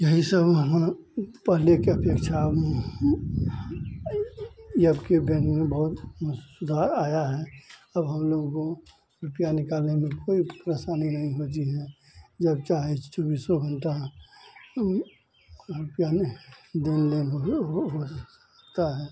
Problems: constant background noise